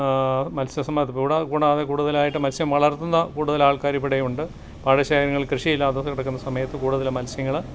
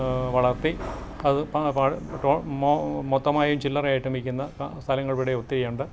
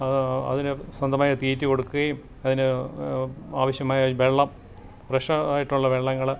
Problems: none marked